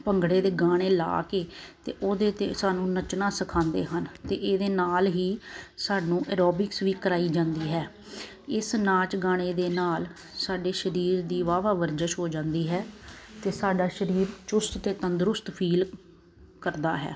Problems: constant background noise